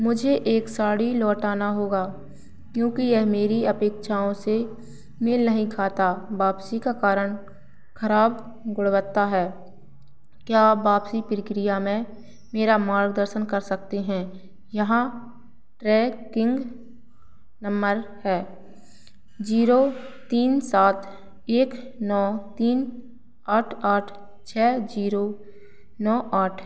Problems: none marked